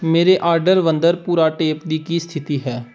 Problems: background sounds at intervals